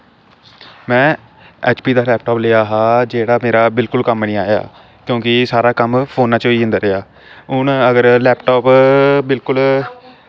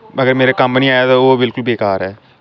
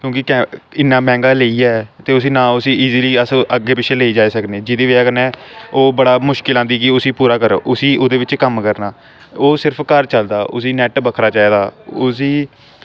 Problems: constant background noise